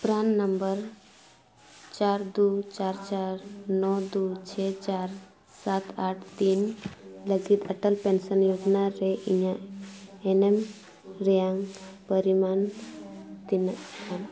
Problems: constant background noise, continuous background conversations